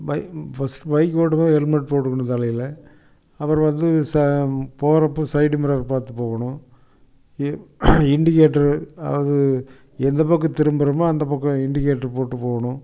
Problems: none marked